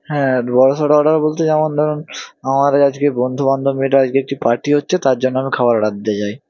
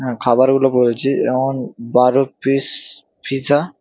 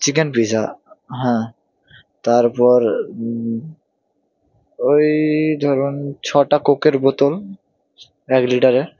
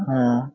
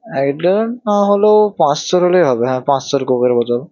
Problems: none marked